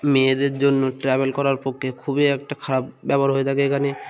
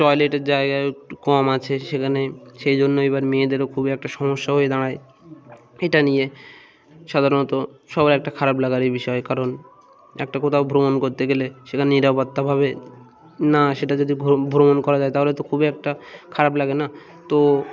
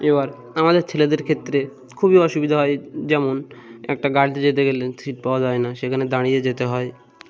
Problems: constant background noise